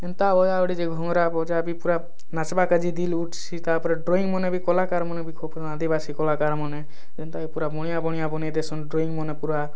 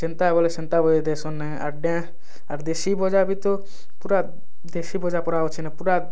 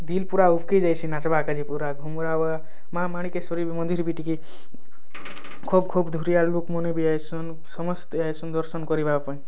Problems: background sounds at intervals